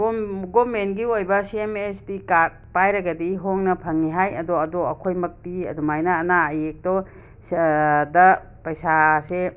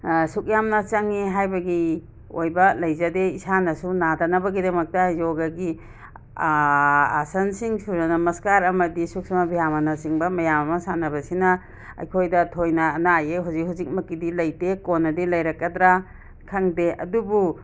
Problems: none marked